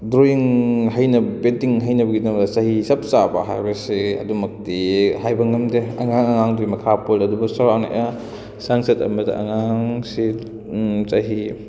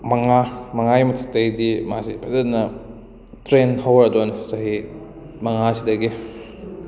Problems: background conversations at intervals